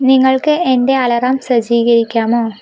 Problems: none marked